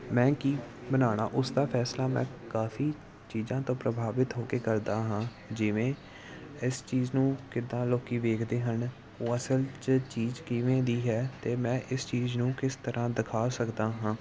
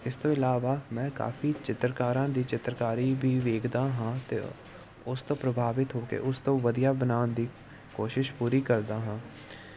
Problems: constant background noise